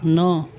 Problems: background sounds at intervals, background conversations at intervals